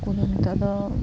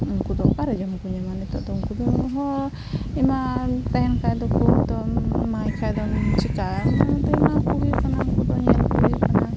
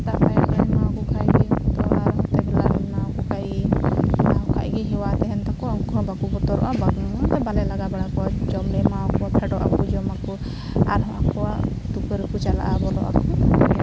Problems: constant background noise